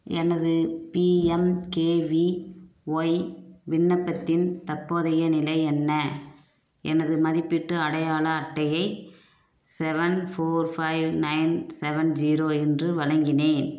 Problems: none marked